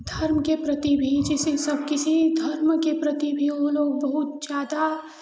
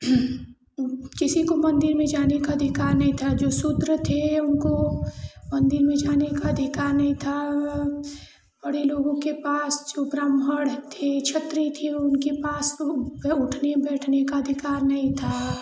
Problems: constant background noise, continuous background conversations